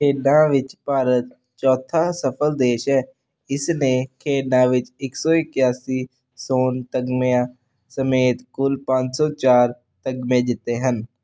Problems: none marked